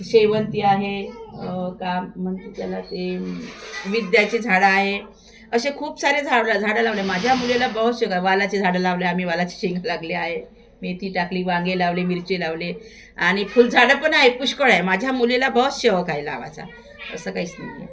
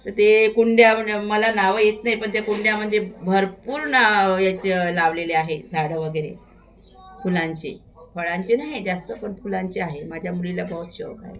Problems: constant background noise, continuous background conversations